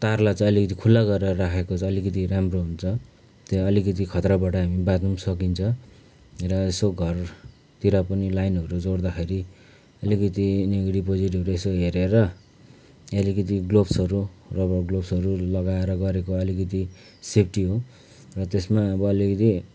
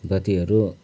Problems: background conversations at intervals